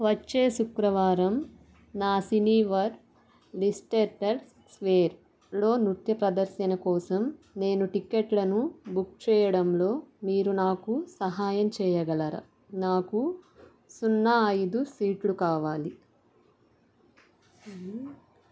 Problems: none marked